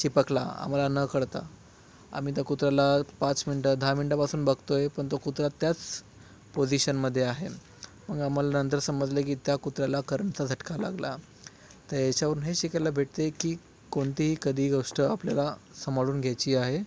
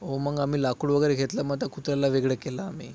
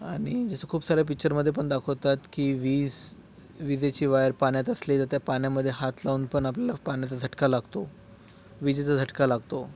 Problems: none marked